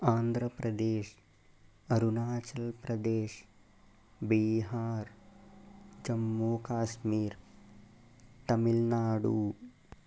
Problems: constant background noise, low volume